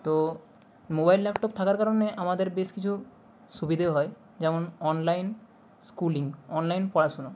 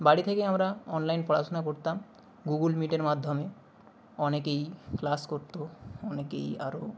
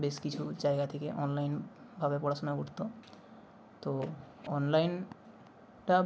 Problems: background sounds at intervals